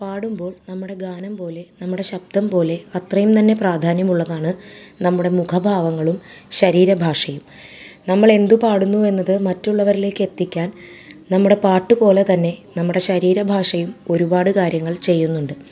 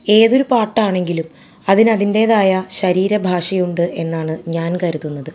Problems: none marked